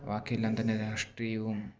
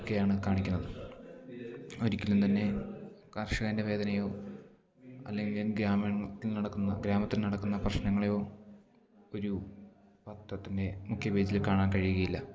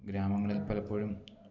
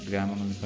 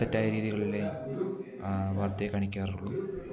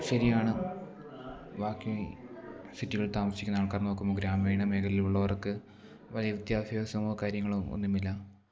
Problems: low volume